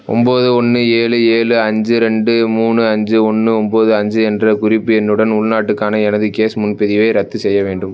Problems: none marked